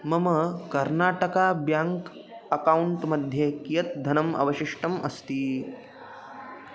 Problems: none marked